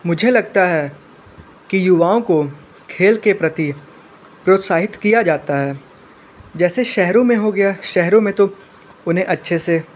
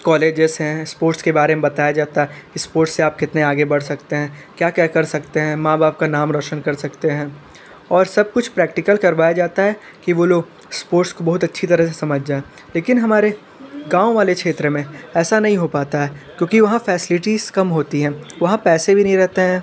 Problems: background conversations at intervals